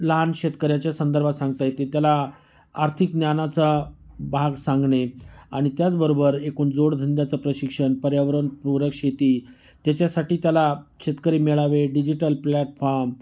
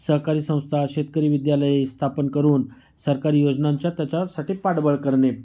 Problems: background sounds at intervals